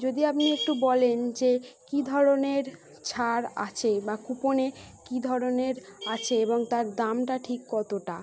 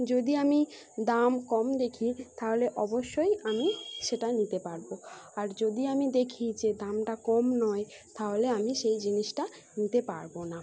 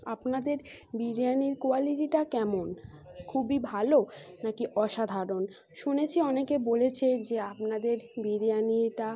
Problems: background sounds at intervals